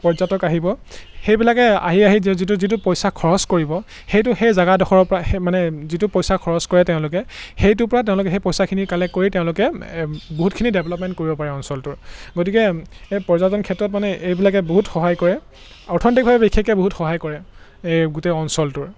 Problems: none marked